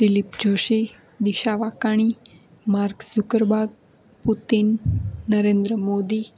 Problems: constant background noise